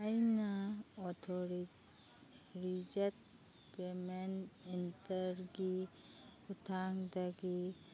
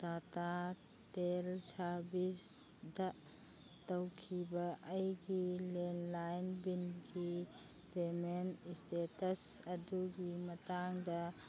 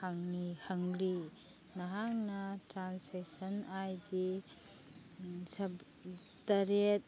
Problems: background sounds at intervals